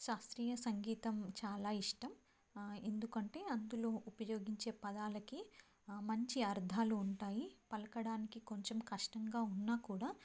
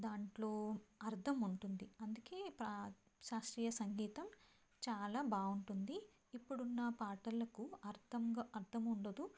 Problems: none marked